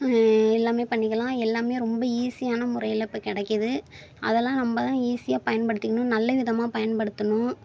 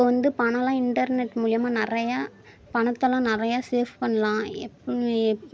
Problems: none marked